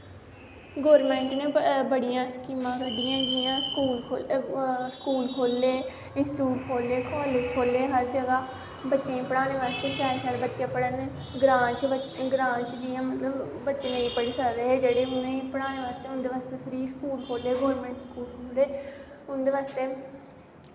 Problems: constant background noise